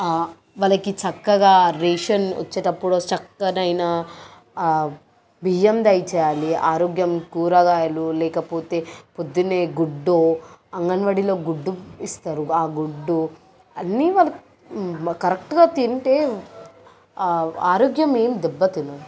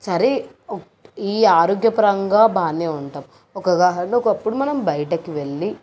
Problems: none marked